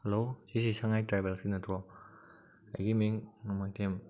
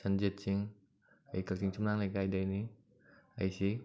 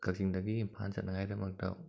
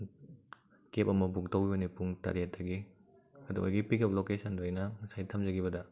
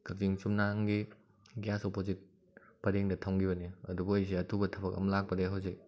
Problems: background conversations at intervals